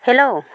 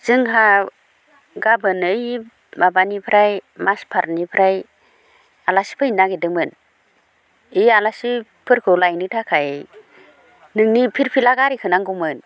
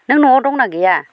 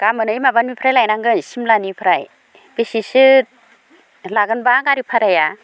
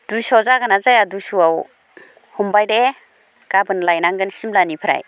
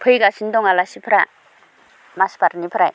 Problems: none marked